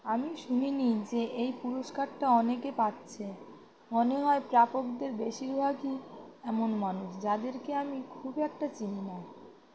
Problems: constant background noise